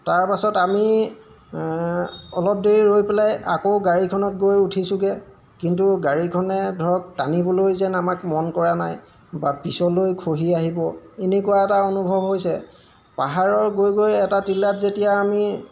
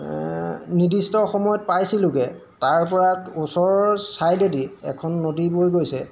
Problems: background sounds at intervals